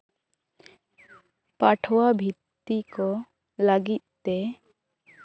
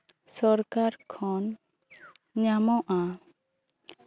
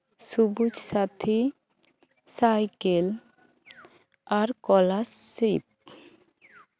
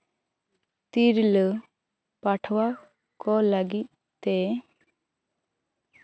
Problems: constant background noise, background conversations at intervals